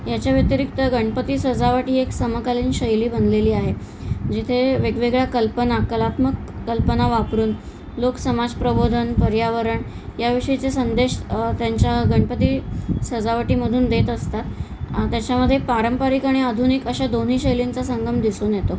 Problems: constant background noise